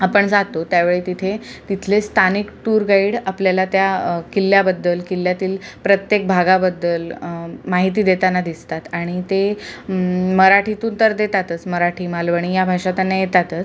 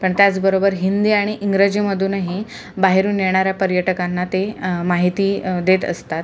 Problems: none marked